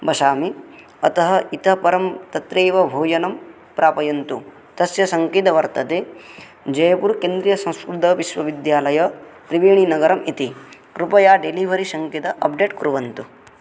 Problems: none marked